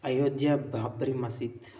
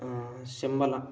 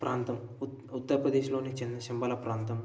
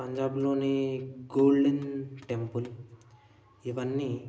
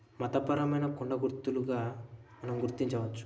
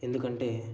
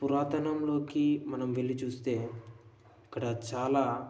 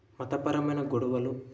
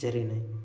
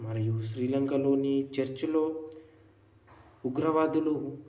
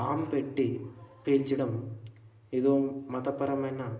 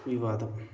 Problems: constant background noise